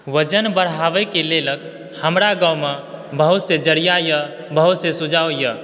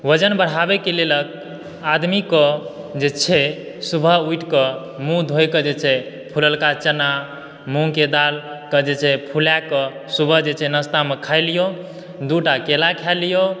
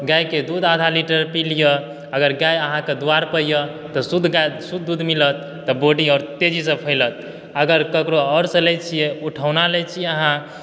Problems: background sounds at intervals